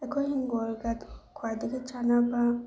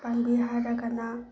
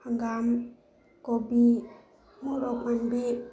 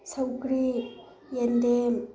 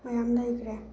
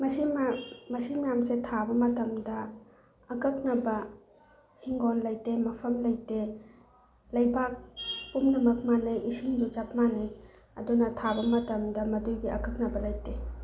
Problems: background sounds at intervals